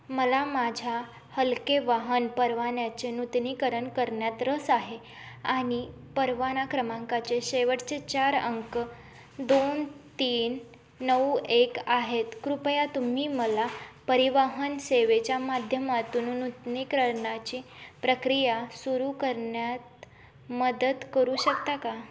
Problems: none marked